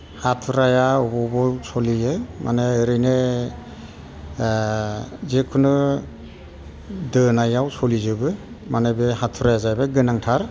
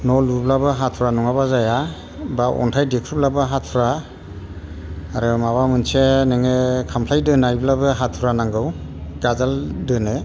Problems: constant background noise